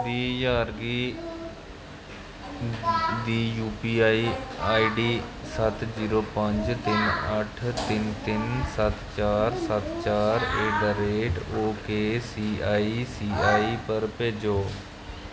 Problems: constant background noise